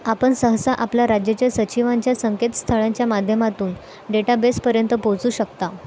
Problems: none marked